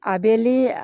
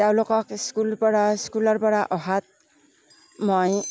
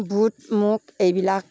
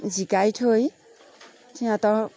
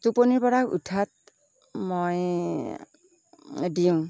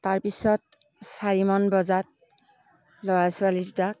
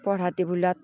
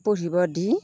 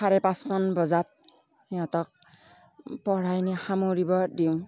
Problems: none marked